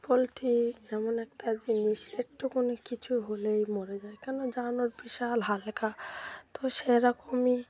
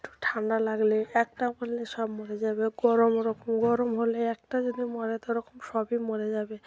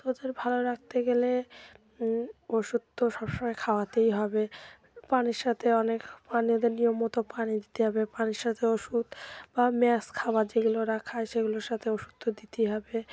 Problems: continuous background conversations